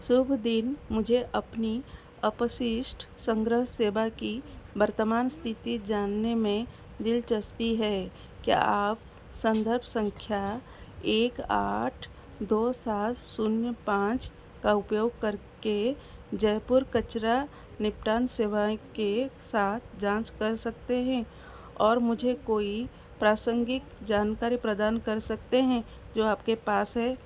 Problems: constant background noise